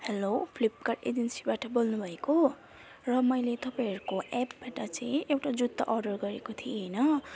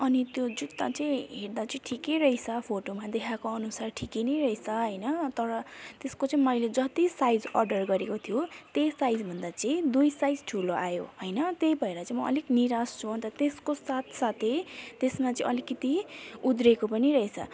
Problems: background sounds at intervals